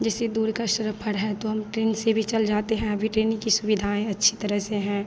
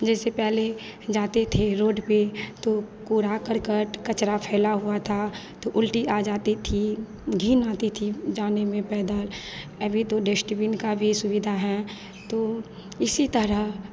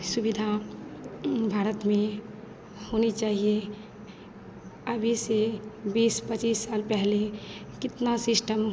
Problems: none marked